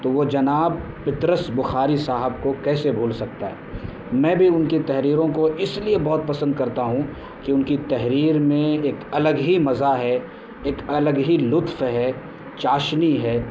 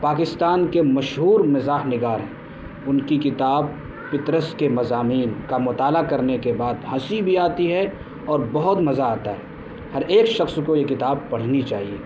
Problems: constant background noise